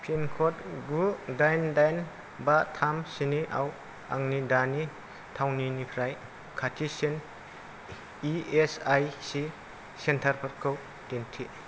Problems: low volume